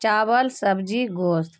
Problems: none marked